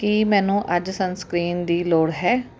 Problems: constant background noise